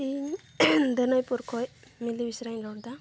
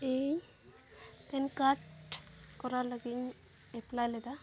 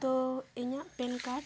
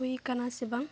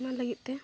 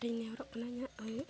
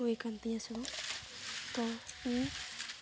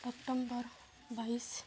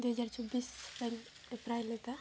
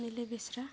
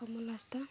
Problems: background sounds at intervals, low volume